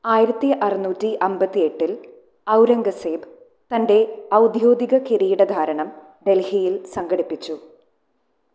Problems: low volume